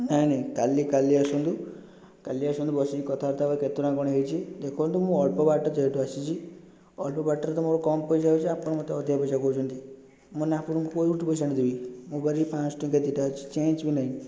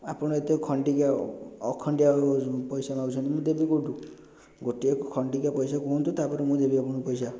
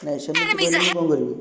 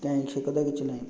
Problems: constant background noise